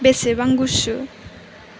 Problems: none marked